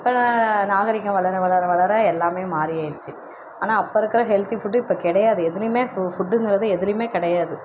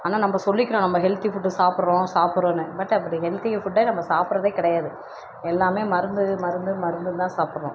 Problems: constant background noise